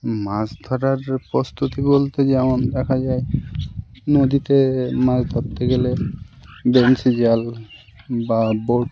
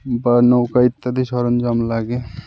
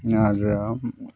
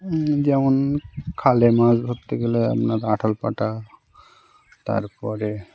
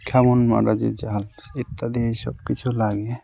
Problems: none marked